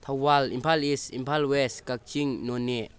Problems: low volume